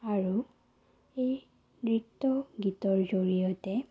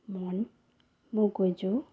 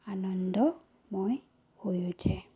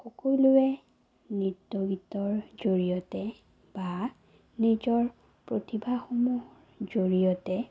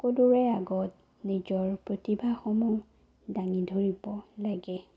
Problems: low volume